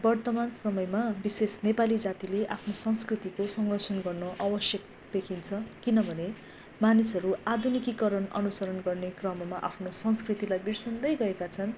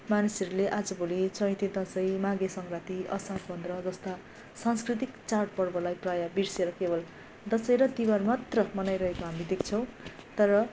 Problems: background sounds at intervals